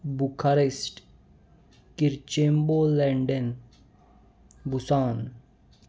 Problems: constant background noise, continuous background conversations